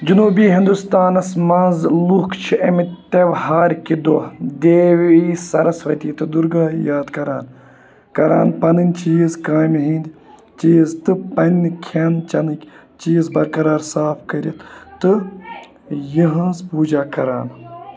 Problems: constant background noise, continuous background conversations